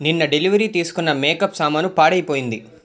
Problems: none marked